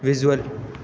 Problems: none marked